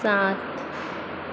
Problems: constant background noise